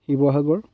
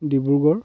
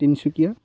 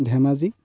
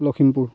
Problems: none marked